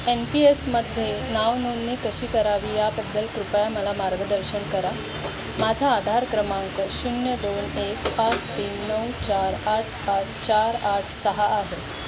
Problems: constant background noise